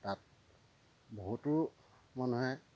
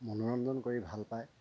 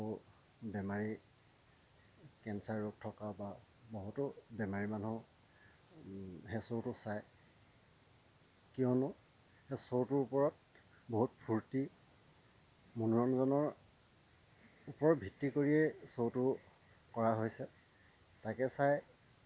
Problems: none marked